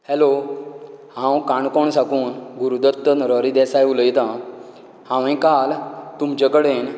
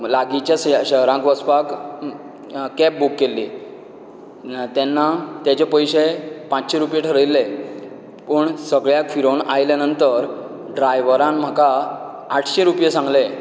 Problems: low volume